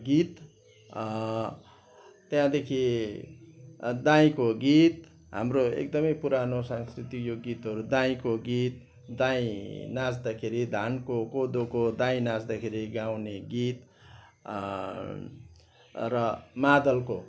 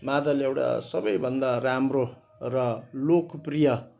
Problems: constant background noise